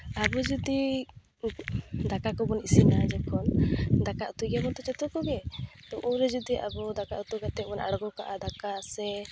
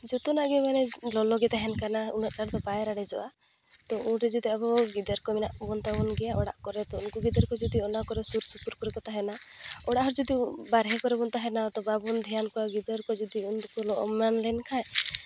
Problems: constant background noise